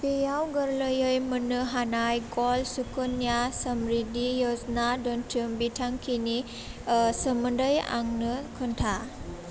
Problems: none marked